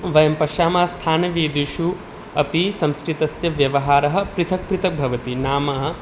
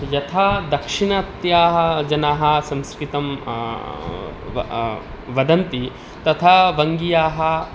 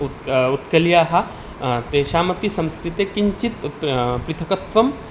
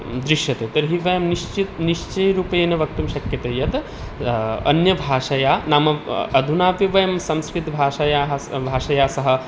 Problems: background sounds at intervals